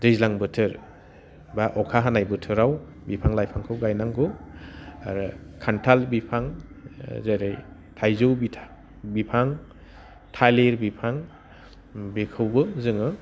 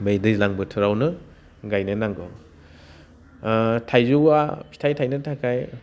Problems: none marked